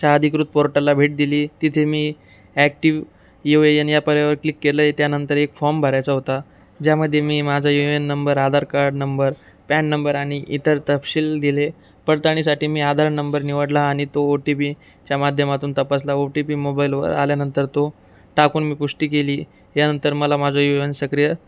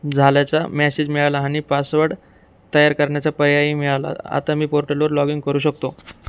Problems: none marked